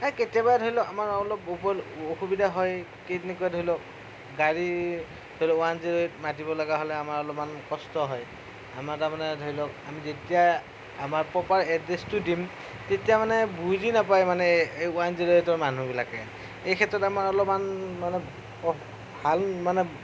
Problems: constant background noise, low volume